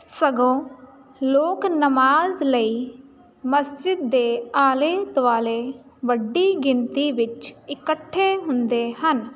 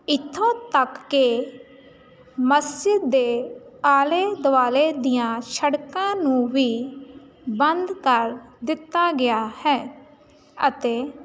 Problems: none marked